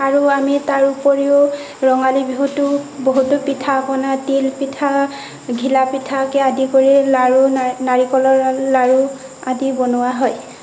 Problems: constant background noise